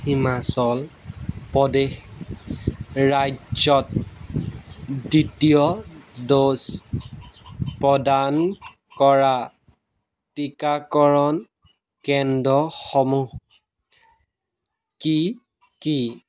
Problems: background sounds at intervals